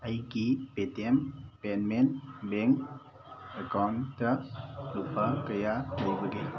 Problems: constant background noise